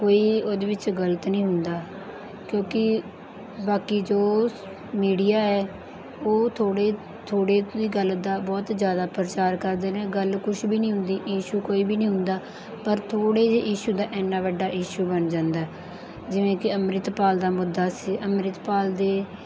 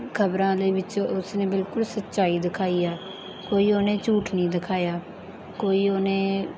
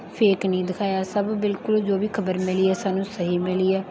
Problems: none marked